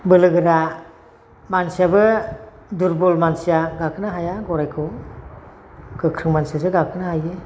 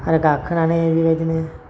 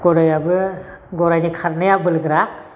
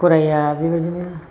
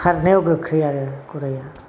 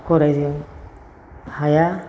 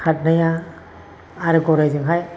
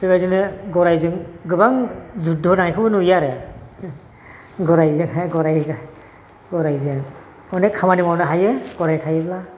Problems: constant background noise